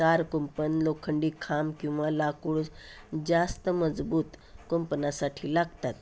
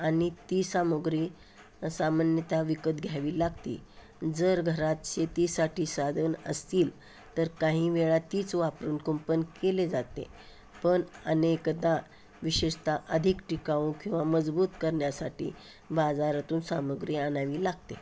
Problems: background sounds at intervals